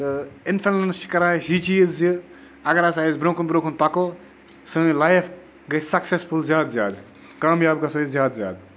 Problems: constant background noise